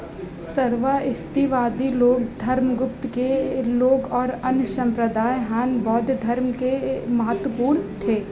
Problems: continuous background conversations